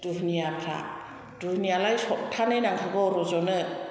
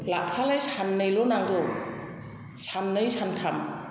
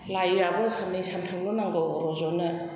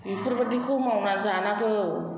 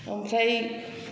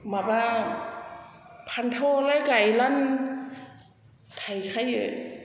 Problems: background conversations at intervals, echo